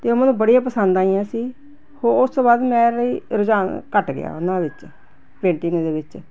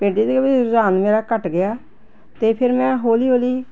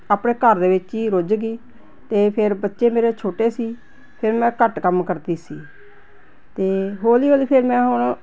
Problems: none marked